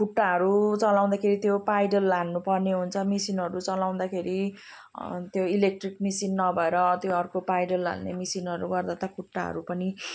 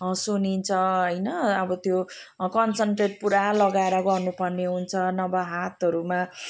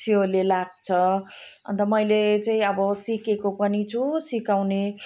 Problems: none marked